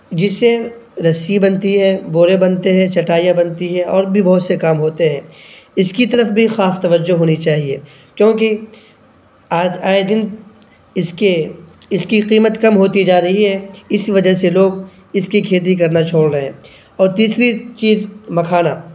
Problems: none marked